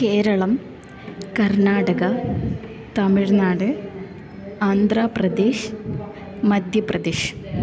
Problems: none marked